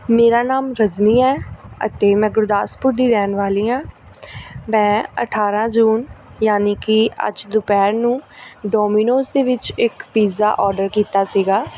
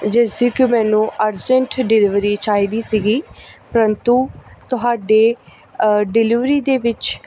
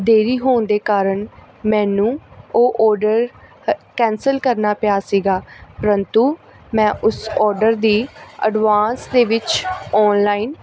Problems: none marked